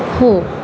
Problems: constant background noise